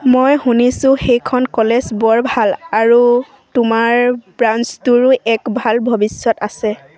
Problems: none marked